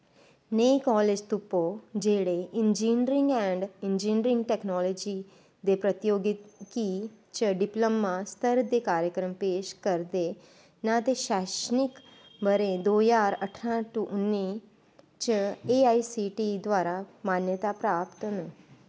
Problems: none marked